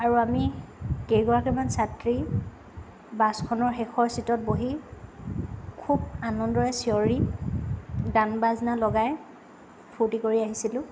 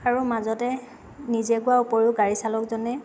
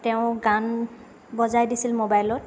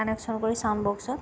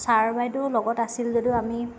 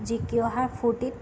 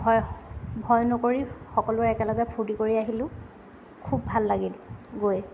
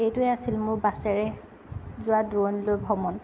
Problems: none marked